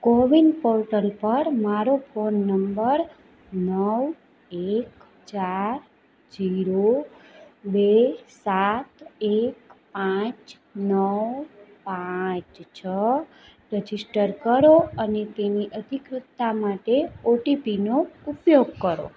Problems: background conversations at intervals